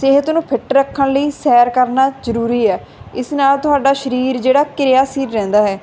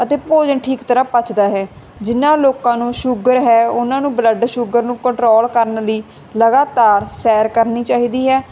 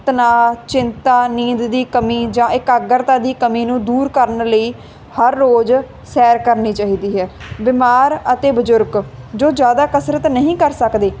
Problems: constant background noise